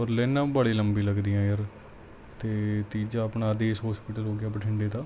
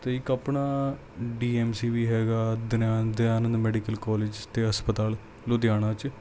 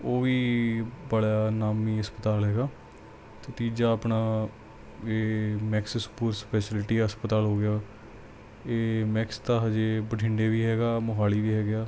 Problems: none marked